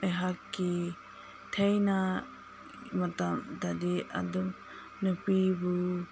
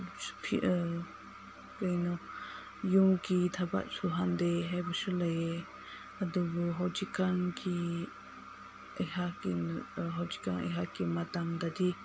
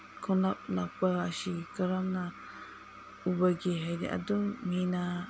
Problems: background sounds at intervals